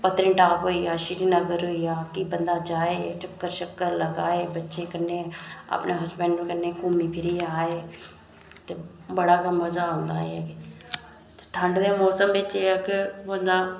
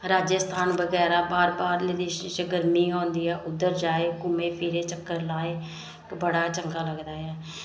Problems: none marked